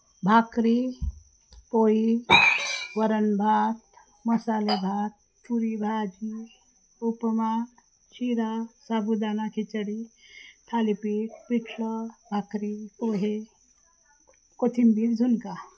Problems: constant background noise, low volume